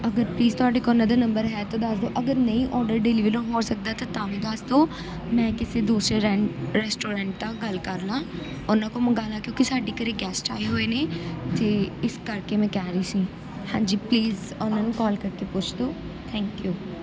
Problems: none marked